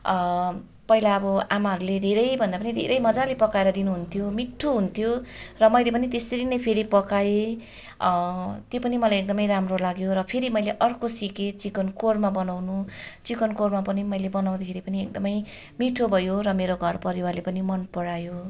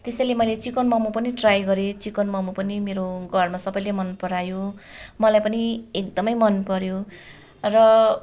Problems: constant background noise